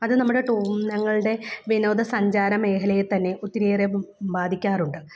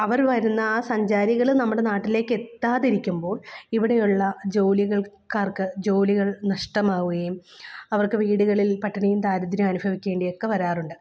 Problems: none marked